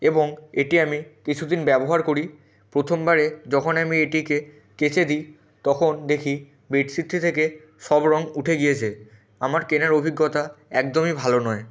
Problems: background conversations at intervals